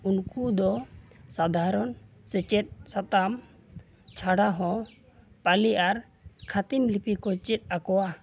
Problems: background sounds at intervals